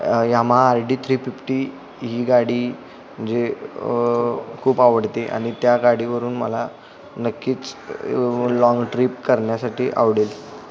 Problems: background conversations at intervals